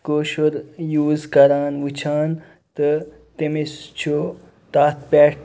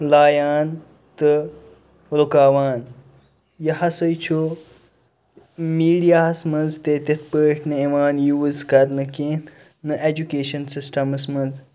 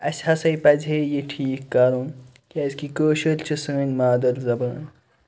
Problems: none marked